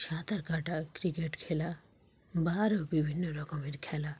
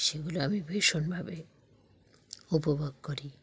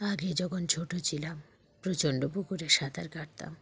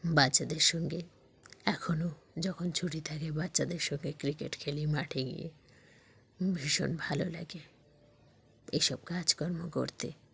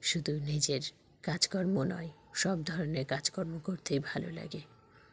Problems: none marked